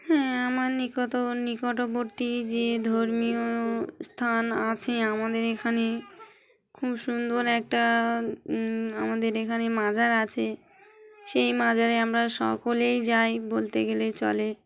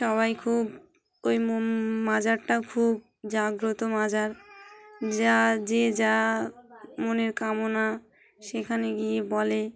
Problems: background sounds at intervals, background conversations at intervals